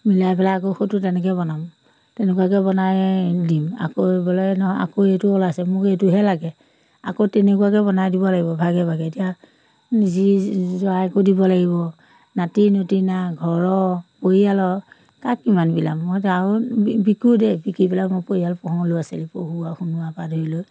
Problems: none marked